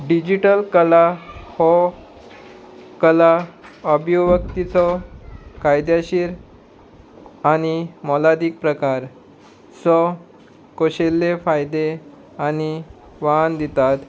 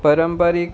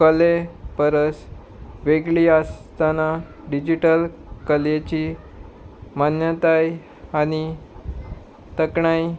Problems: background sounds at intervals